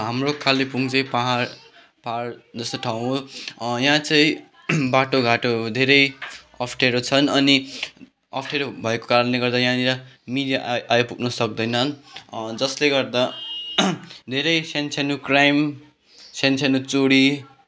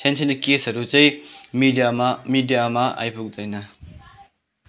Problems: background sounds at intervals, background conversations at intervals